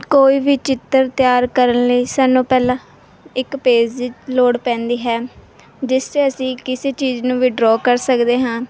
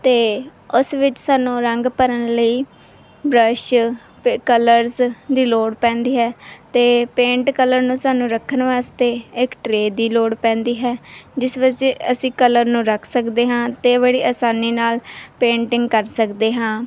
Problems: none marked